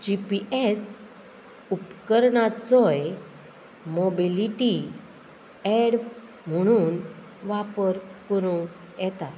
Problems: constant background noise